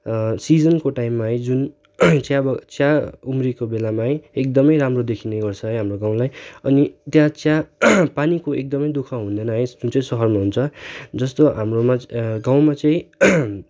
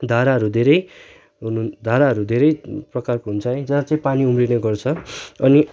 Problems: background sounds at intervals